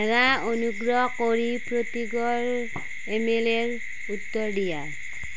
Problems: constant background noise